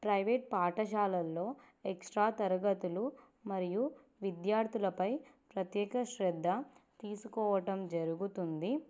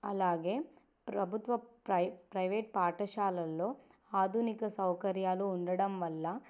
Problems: none marked